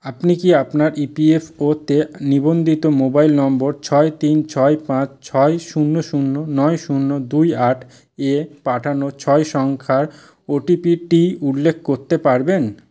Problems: constant background noise